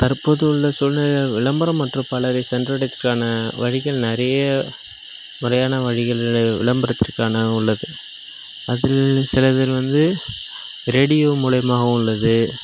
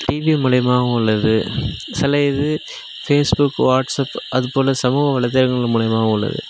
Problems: background sounds at intervals